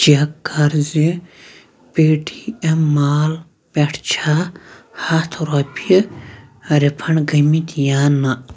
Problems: background sounds at intervals